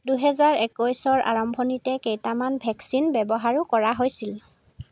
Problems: constant background noise